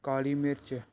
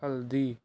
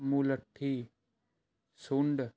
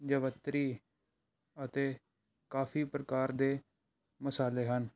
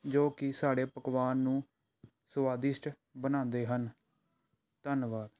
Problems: none marked